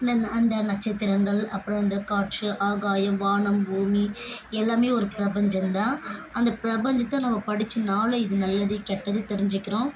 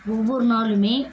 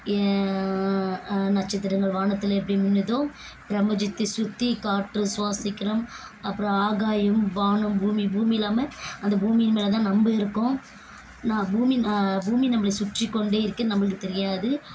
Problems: constant background noise